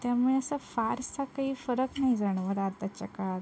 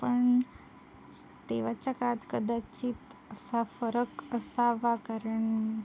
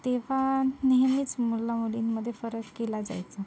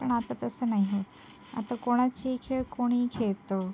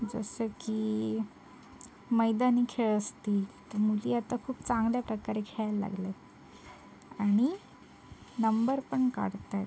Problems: constant background noise, background conversations at intervals